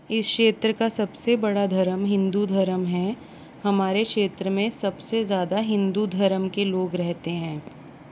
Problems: constant background noise